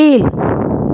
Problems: constant background noise